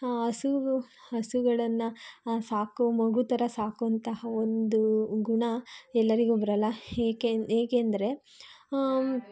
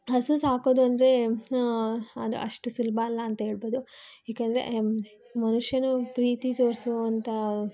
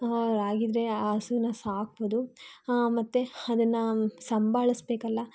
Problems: none marked